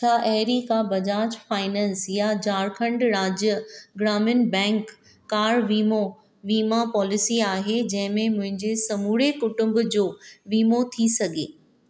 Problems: none marked